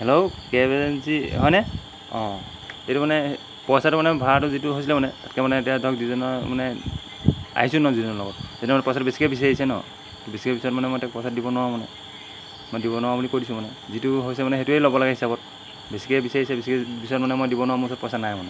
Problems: constant background noise